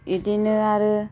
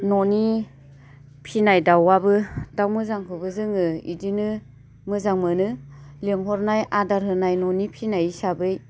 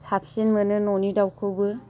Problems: low volume